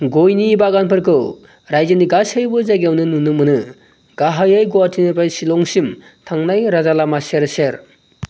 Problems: none marked